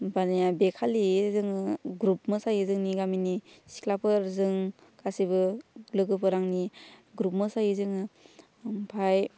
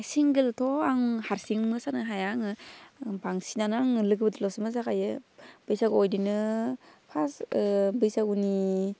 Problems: none marked